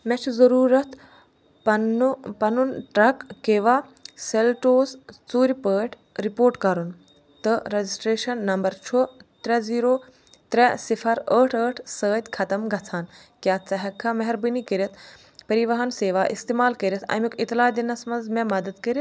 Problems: none marked